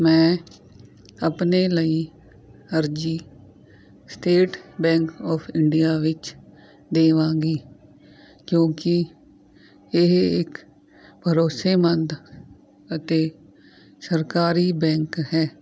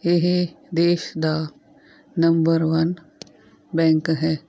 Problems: none marked